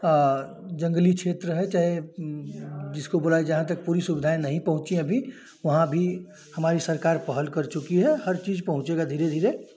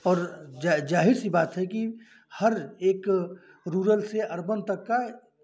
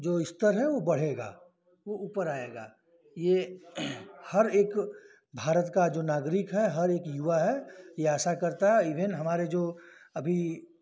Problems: none marked